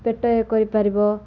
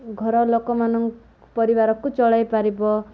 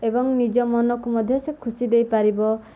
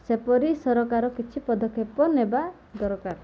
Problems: none marked